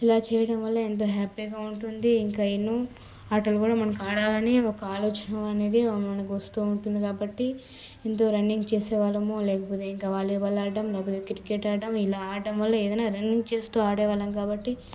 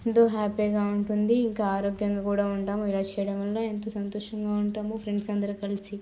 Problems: low volume